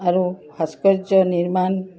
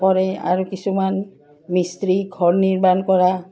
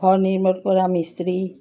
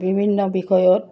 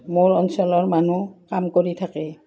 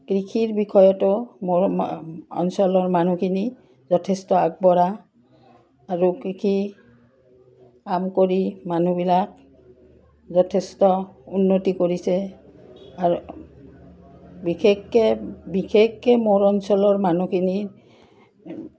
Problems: background sounds at intervals